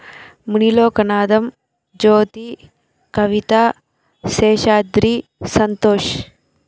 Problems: none marked